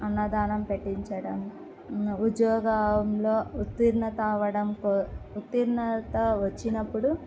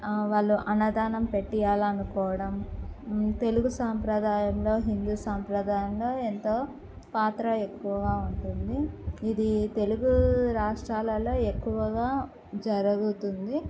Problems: low volume